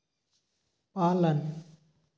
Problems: background sounds at intervals